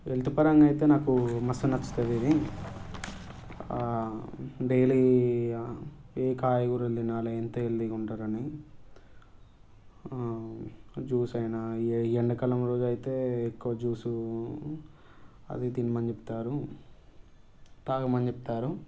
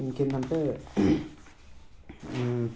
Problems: background sounds at intervals